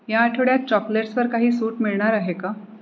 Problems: constant background noise